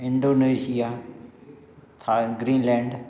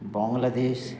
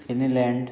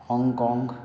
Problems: background sounds at intervals